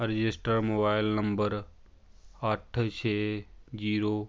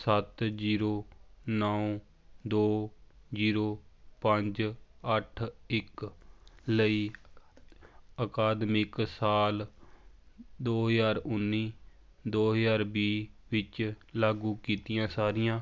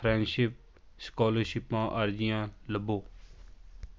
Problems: constant background noise, background conversations at intervals